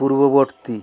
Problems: constant background noise, background conversations at intervals